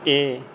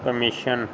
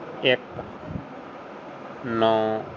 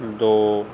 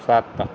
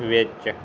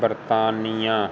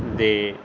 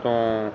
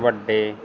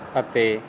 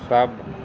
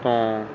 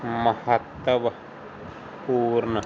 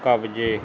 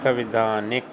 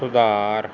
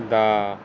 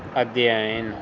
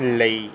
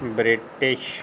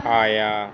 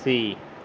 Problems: constant background noise